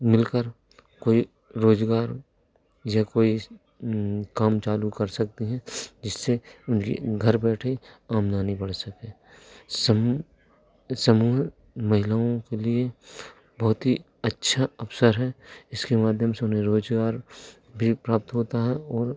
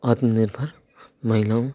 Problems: none marked